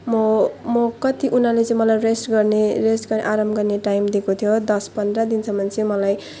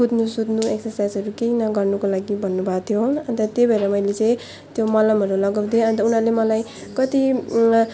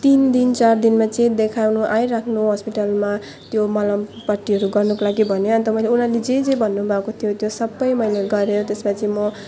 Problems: none marked